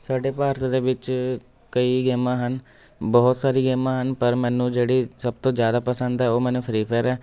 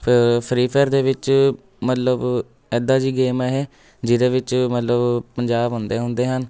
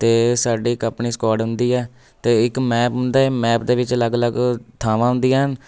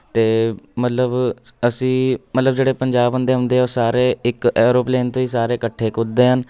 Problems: none marked